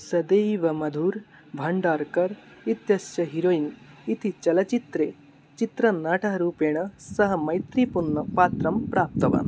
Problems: none marked